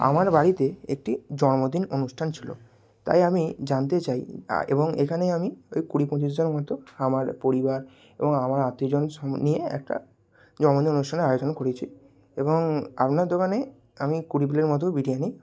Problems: none marked